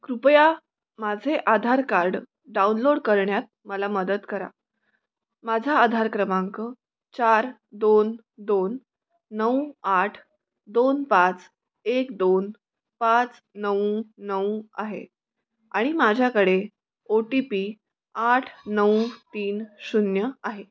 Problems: none marked